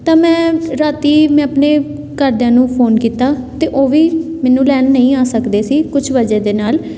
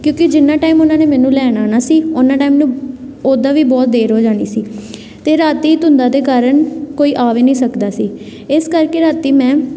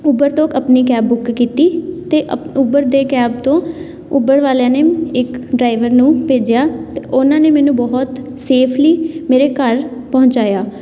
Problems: background conversations at intervals